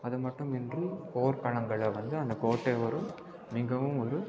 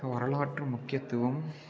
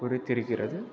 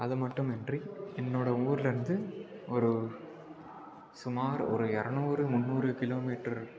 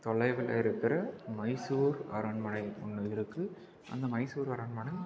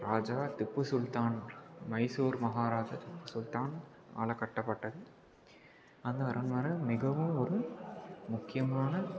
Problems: constant background noise